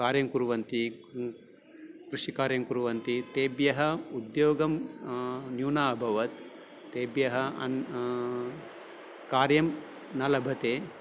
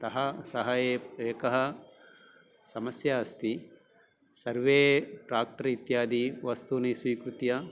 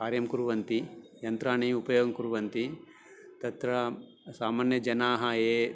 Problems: none marked